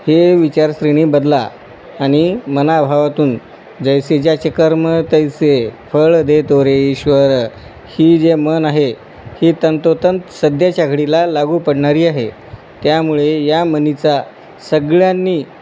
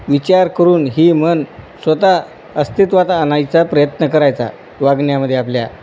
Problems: none marked